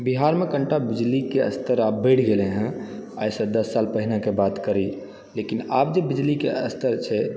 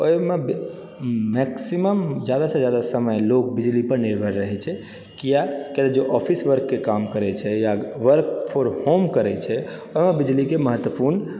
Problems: background sounds at intervals